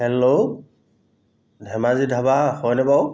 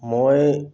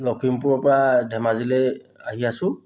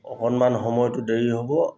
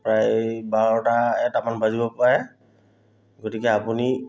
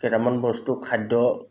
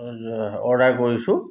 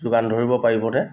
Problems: none marked